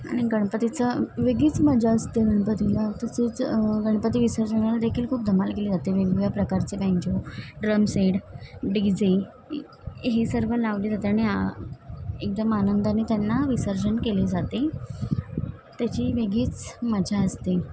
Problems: constant background noise, background conversations at intervals